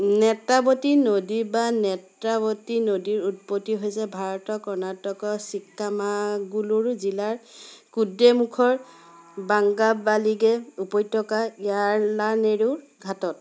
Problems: constant background noise